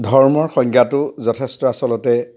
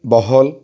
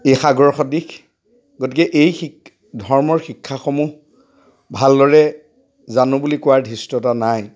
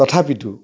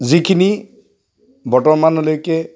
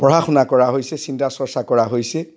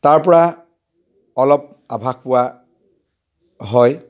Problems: background sounds at intervals